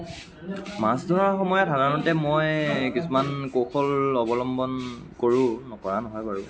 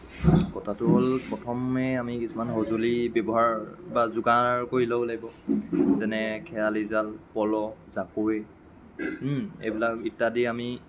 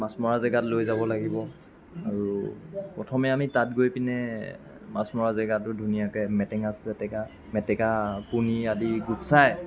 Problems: background sounds at intervals, continuous background conversations